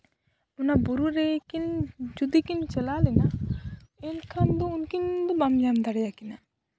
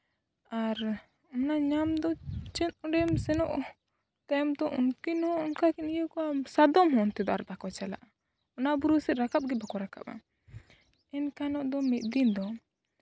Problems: background sounds at intervals